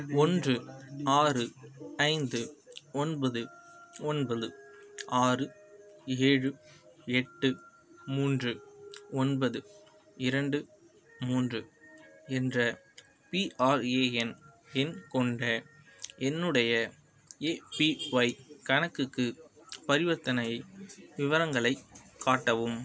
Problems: background sounds at intervals